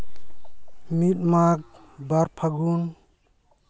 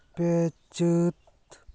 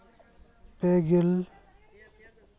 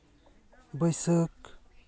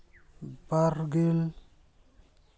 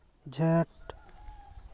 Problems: background conversations at intervals